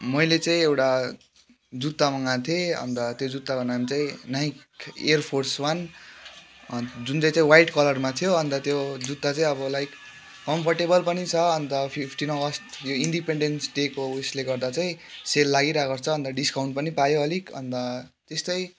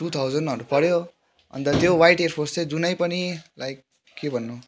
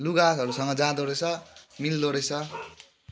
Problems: constant background noise, background conversations at intervals